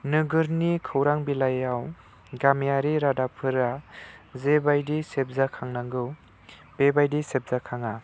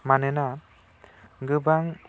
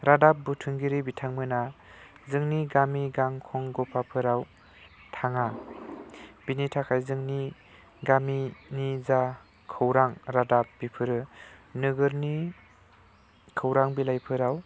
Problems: low volume